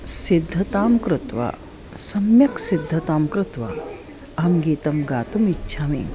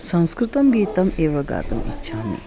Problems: background sounds at intervals, background conversations at intervals